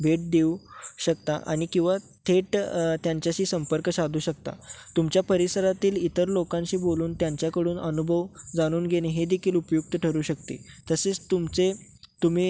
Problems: constant background noise